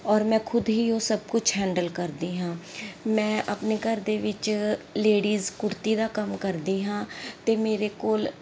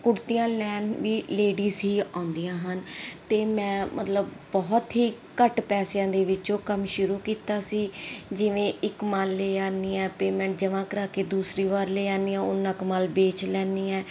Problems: none marked